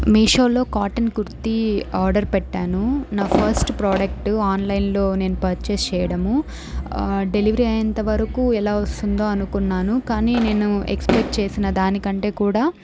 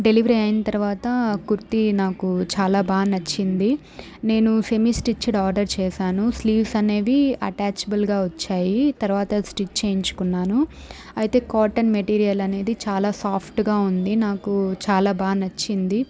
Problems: background sounds at intervals